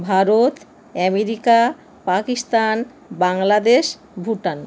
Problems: none marked